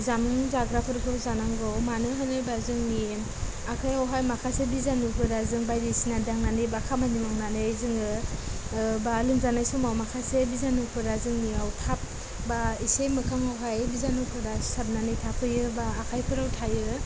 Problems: constant background noise, low volume